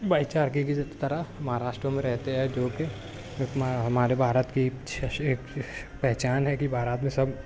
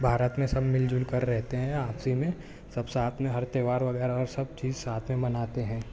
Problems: constant background noise